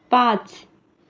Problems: none marked